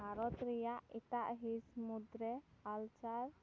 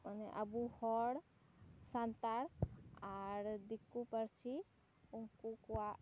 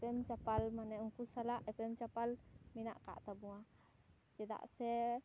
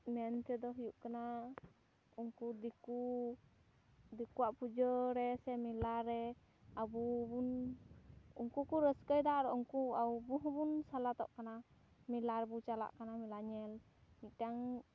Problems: background sounds at intervals